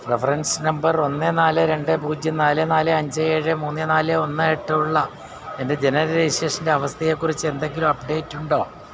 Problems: constant background noise